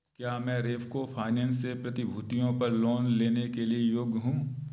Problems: none marked